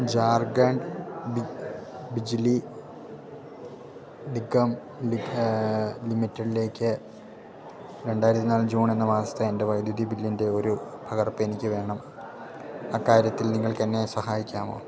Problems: low volume